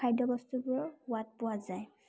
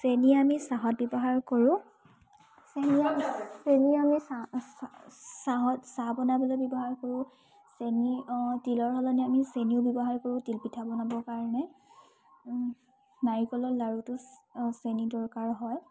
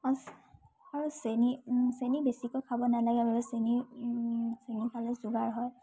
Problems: none marked